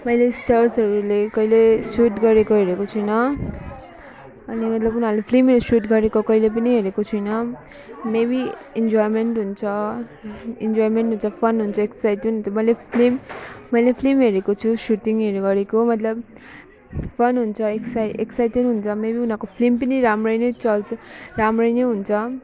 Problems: background sounds at intervals